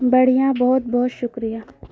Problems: constant background noise